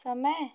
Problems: none marked